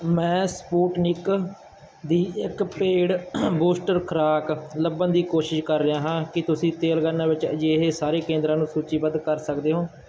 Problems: background sounds at intervals